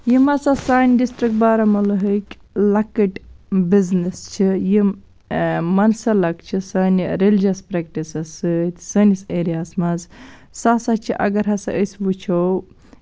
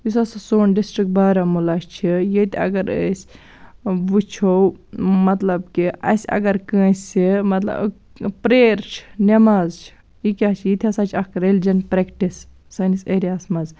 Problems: none marked